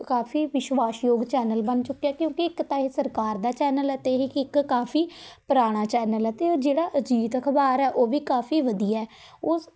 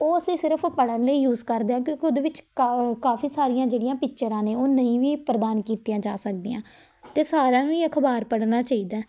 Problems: none marked